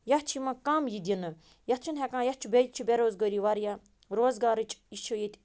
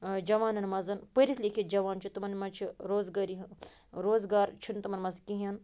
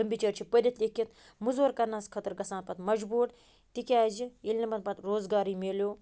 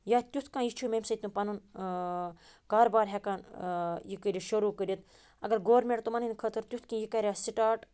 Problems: background sounds at intervals